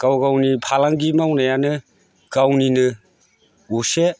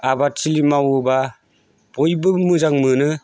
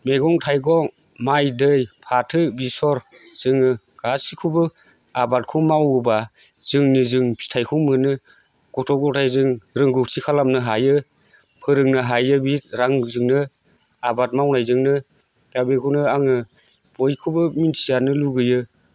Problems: constant background noise